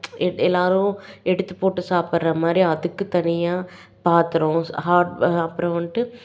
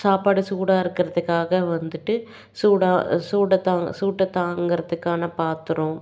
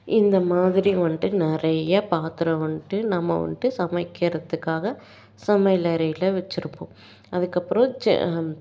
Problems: none marked